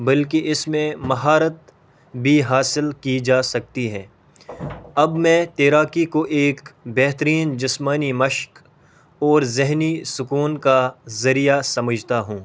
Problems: constant background noise